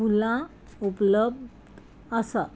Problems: none marked